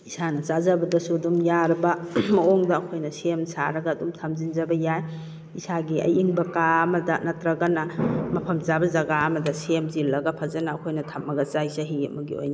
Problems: background sounds at intervals